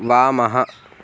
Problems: background sounds at intervals